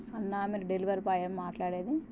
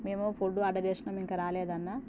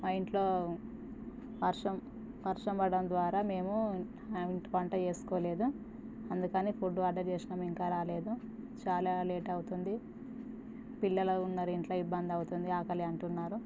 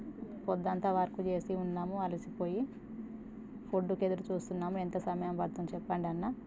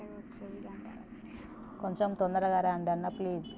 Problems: constant background noise